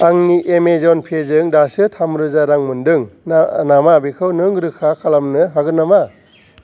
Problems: background sounds at intervals